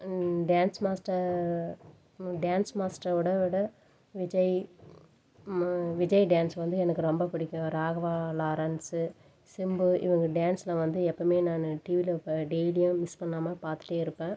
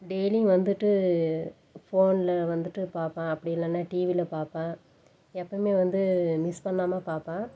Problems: background sounds at intervals